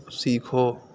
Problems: none marked